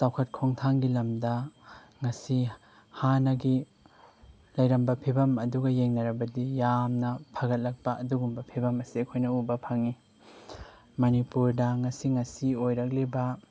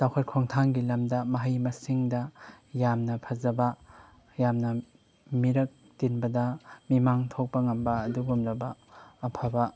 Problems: none marked